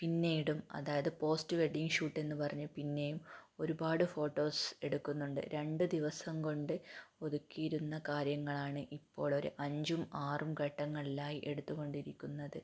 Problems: low volume